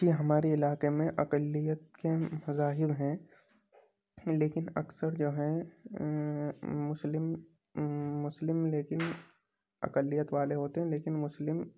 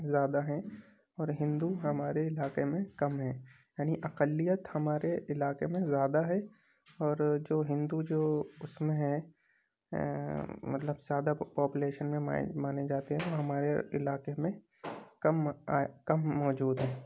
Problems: constant background noise